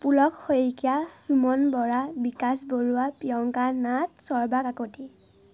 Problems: none marked